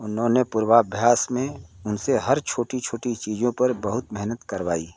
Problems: none marked